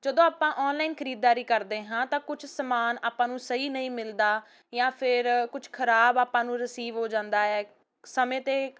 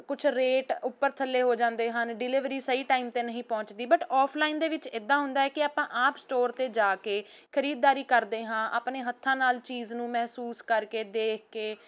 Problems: constant background noise